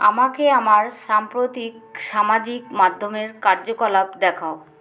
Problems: constant background noise